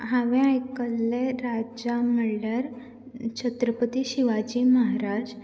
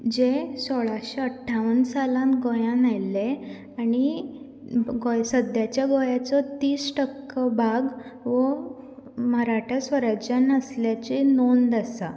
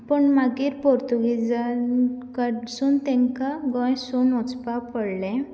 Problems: background sounds at intervals